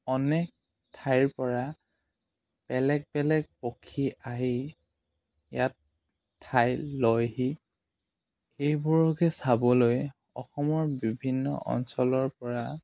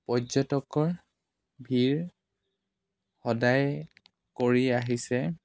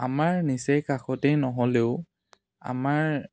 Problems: none marked